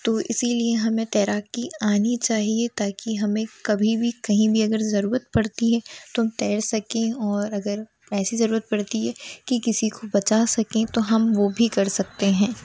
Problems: none marked